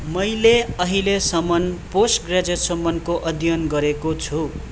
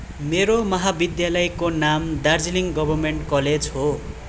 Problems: continuous background conversations